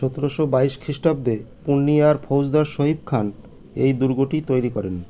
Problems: constant background noise